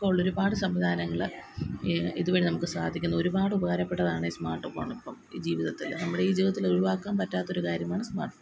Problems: none marked